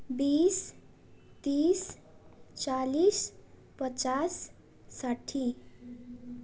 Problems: none marked